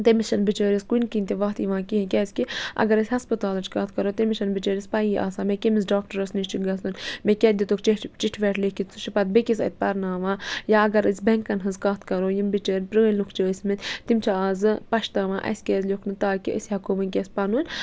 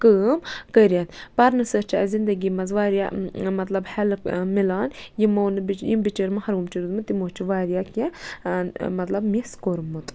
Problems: none marked